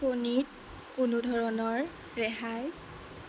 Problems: constant background noise